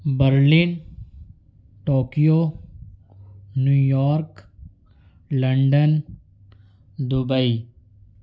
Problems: none marked